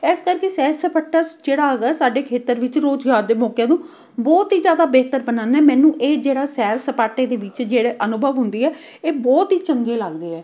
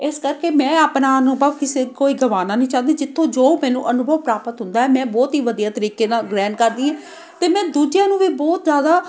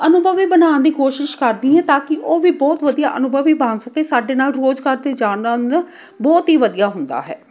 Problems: none marked